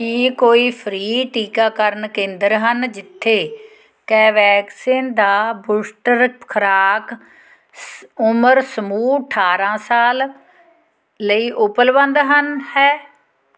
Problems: background conversations at intervals